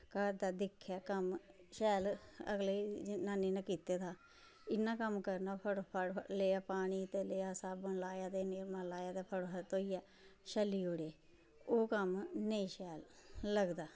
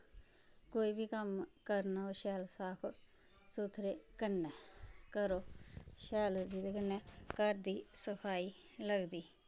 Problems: constant background noise, low volume